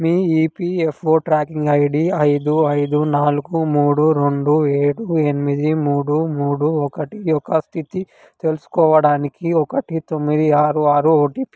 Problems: background sounds at intervals